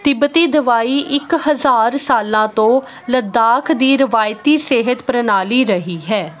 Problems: background sounds at intervals